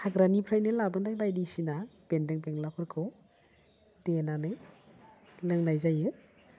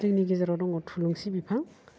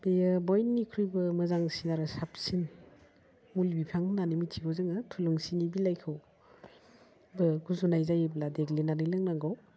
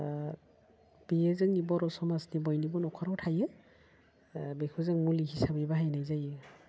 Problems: constant background noise